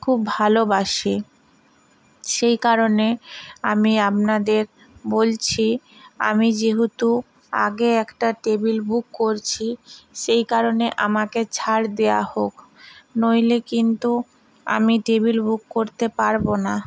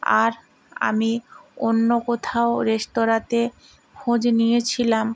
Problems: constant background noise